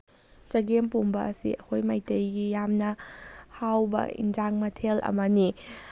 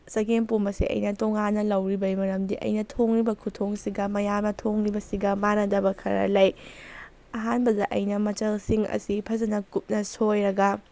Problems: background sounds at intervals